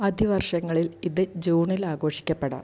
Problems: low volume